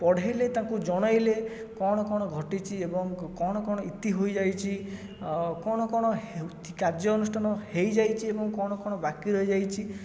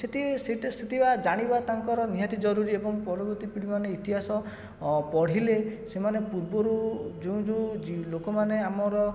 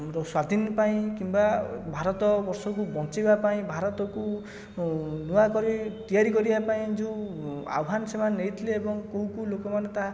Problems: background sounds at intervals